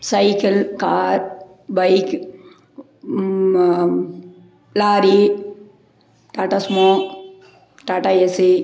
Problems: background sounds at intervals